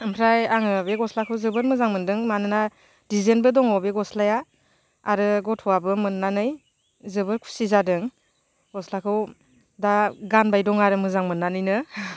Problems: none marked